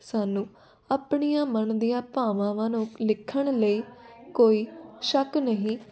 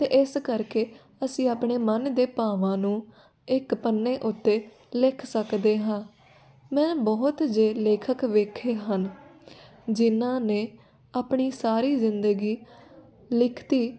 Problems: none marked